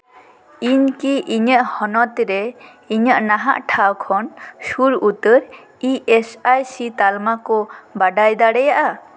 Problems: constant background noise